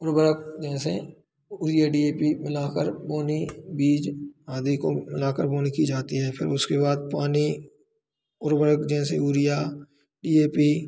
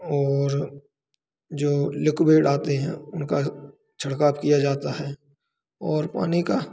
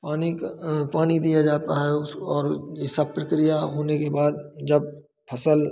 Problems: constant background noise